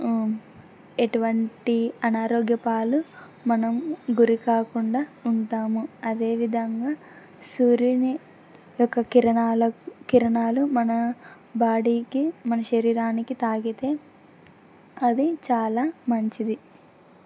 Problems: none marked